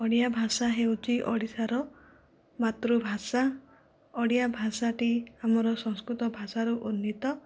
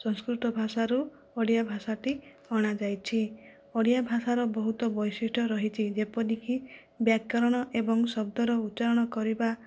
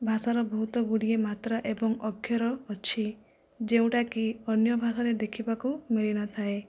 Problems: low volume